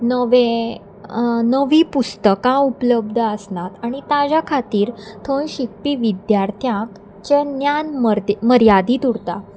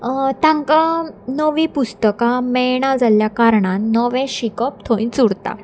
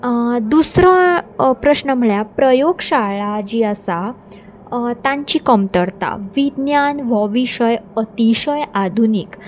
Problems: none marked